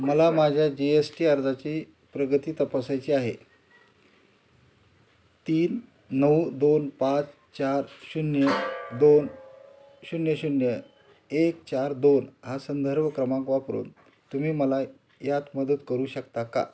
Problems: constant background noise, background conversations at intervals